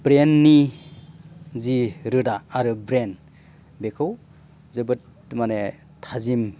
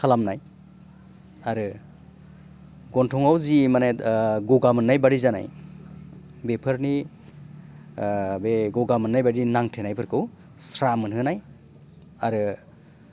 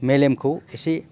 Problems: none marked